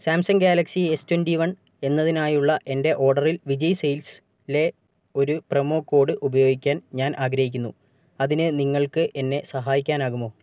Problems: none marked